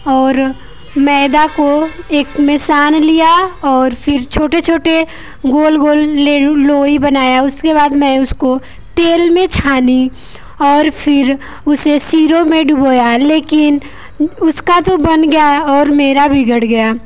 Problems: constant background noise